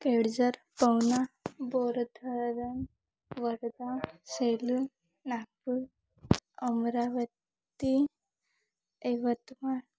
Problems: background sounds at intervals, low volume